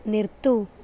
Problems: constant background noise